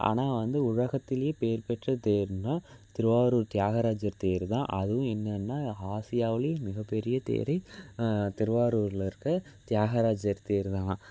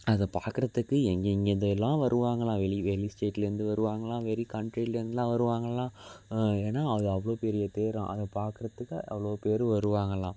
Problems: none marked